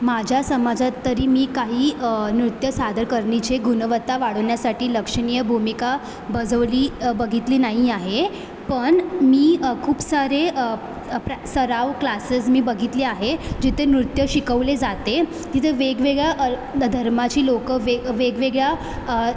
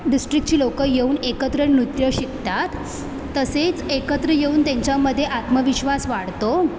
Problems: constant background noise, background conversations at intervals